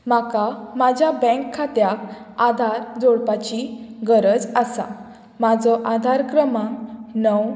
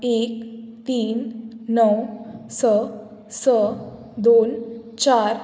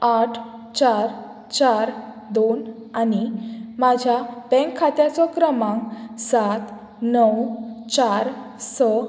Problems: background sounds at intervals